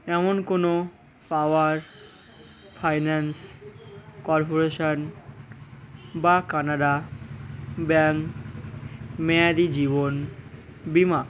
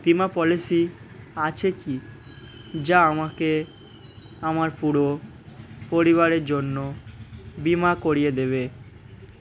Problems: constant background noise